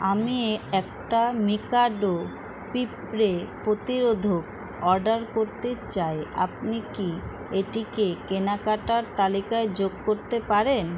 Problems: constant background noise